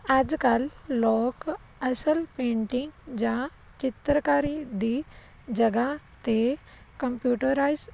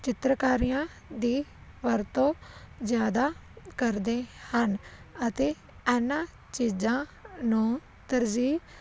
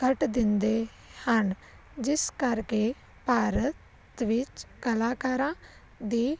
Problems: none marked